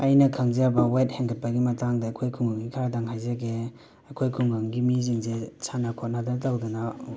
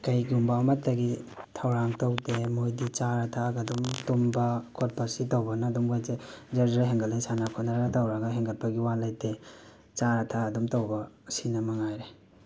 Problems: constant background noise, background conversations at intervals